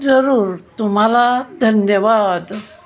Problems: constant background noise, background conversations at intervals